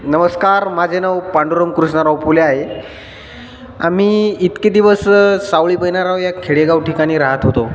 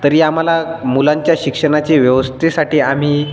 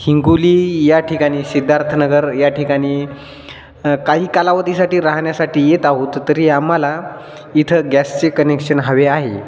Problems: none marked